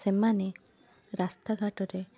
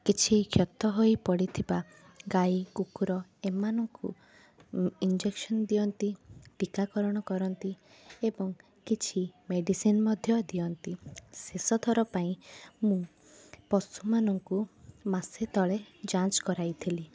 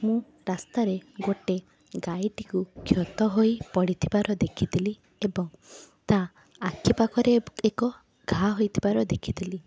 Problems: constant background noise, continuous background conversations